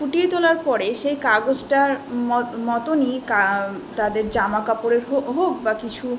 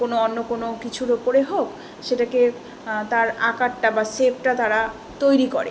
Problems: constant background noise